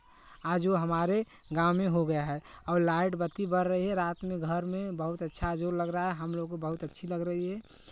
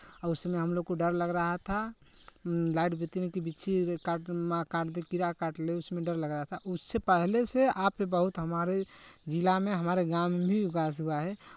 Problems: none marked